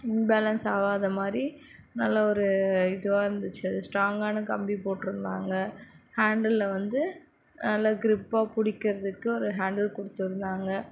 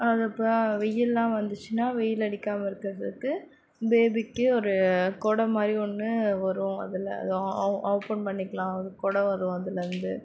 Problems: none marked